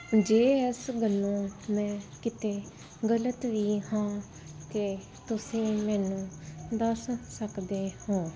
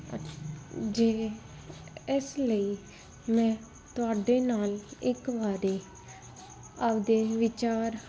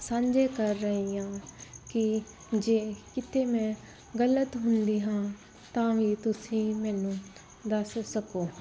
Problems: background sounds at intervals